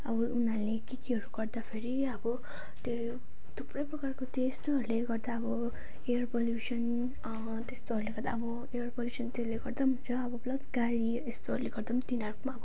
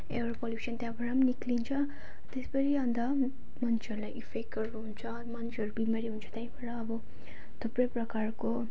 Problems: none marked